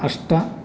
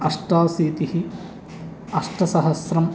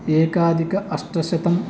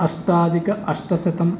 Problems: constant background noise